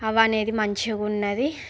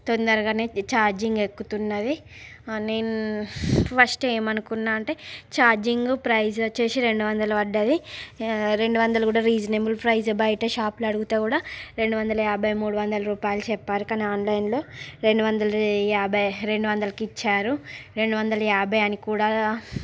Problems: background sounds at intervals